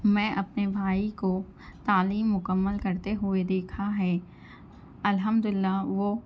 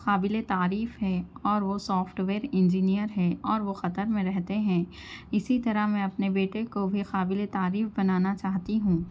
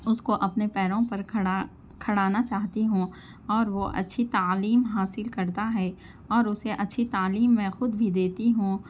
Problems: constant background noise